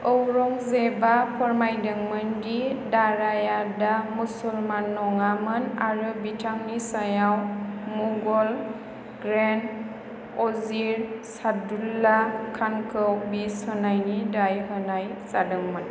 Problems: constant background noise